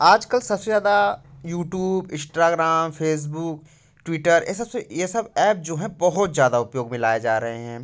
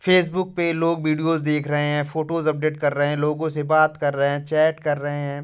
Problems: none marked